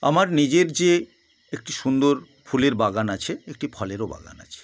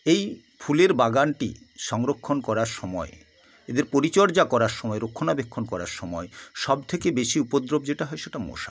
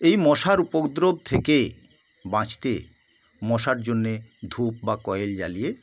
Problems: constant background noise